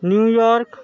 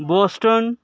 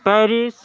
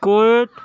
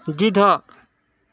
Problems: none marked